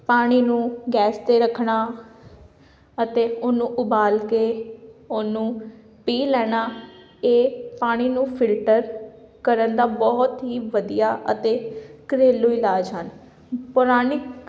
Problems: background sounds at intervals